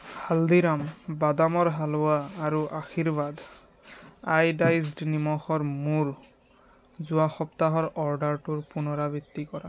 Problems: background sounds at intervals